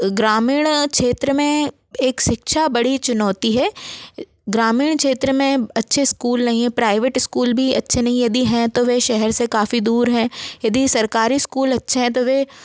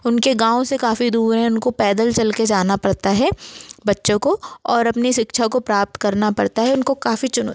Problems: background sounds at intervals